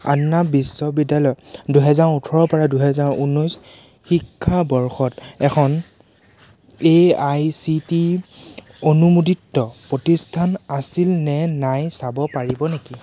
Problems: constant background noise